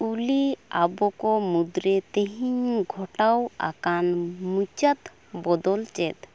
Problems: constant background noise